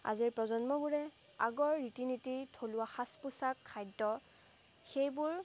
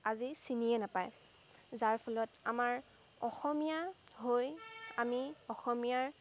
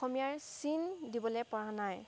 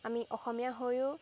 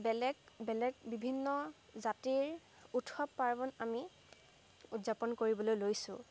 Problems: background sounds at intervals